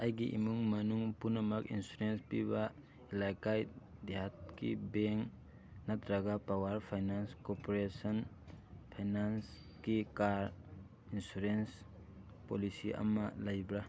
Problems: constant background noise